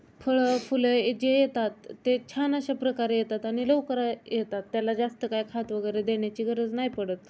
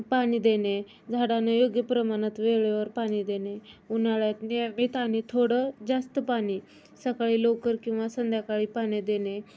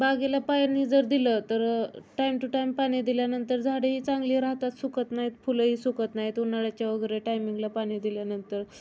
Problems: none marked